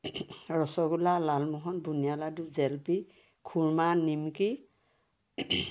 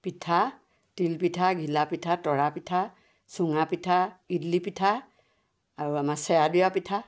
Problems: background sounds at intervals